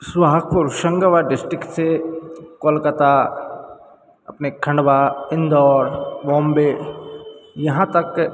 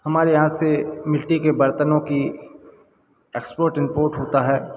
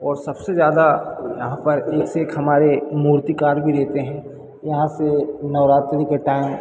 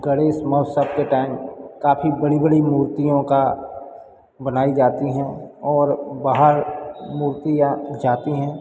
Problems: background sounds at intervals